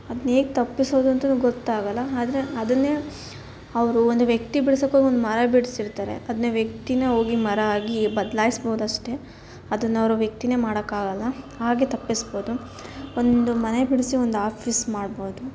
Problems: constant background noise